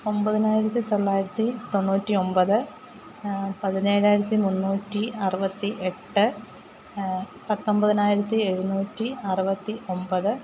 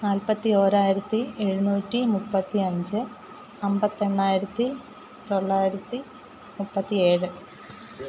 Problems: constant background noise